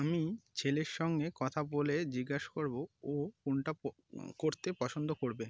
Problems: background sounds at intervals